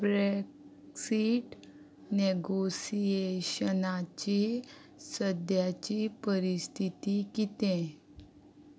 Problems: none marked